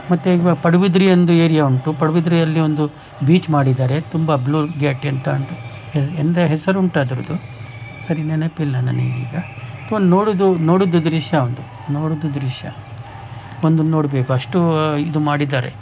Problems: background sounds at intervals